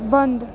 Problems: none marked